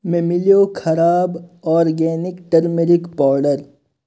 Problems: none marked